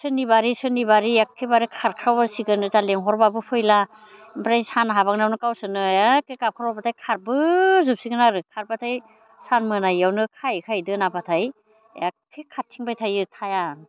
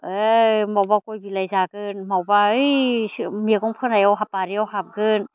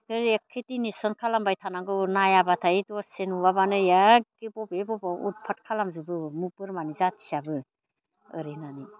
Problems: constant background noise